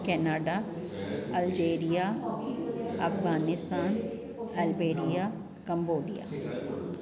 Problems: constant background noise